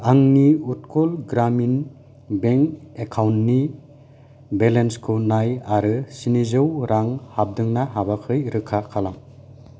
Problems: none marked